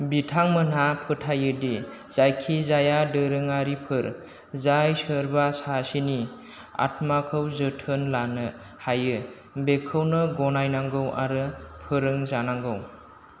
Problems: none marked